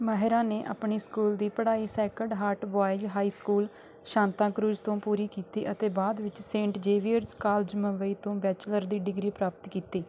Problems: constant background noise